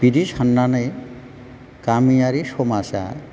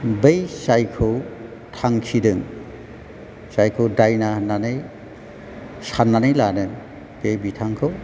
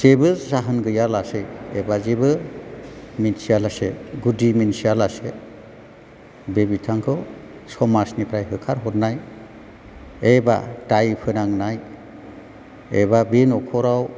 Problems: low volume